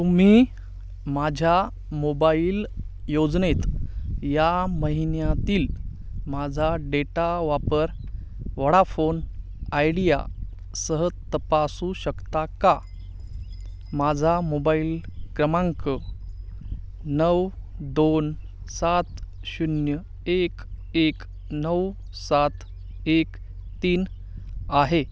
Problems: none marked